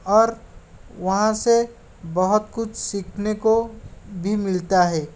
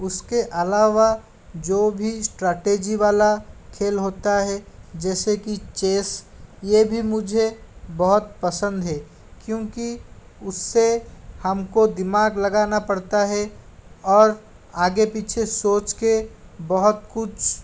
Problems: constant background noise